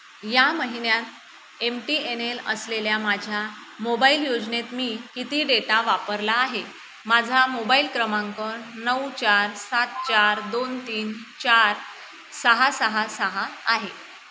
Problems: constant background noise